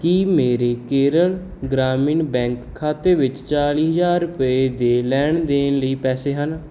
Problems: none marked